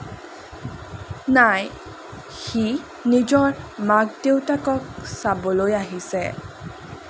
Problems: none marked